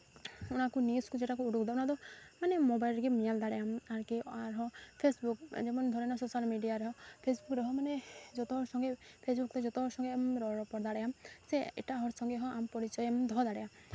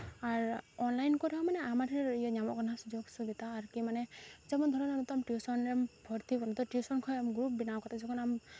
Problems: background sounds at intervals